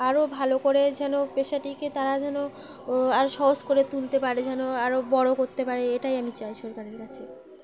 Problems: constant background noise